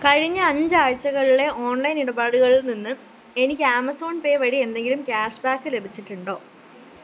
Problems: constant background noise